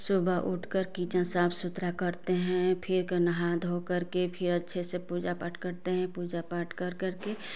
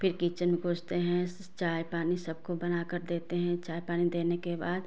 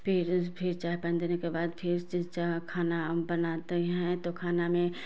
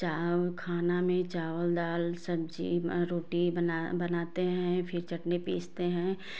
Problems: background sounds at intervals